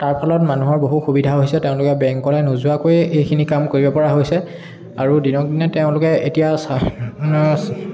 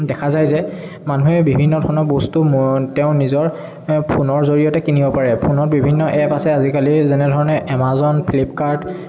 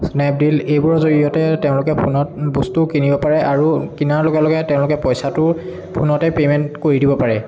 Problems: none marked